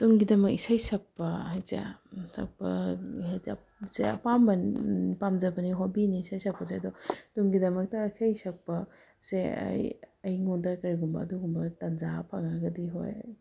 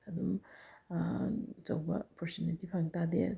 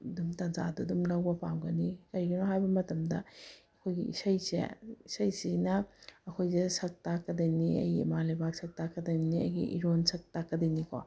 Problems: background sounds at intervals